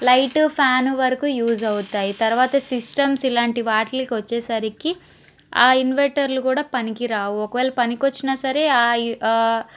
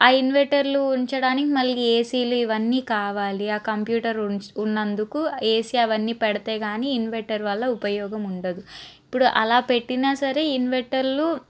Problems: constant background noise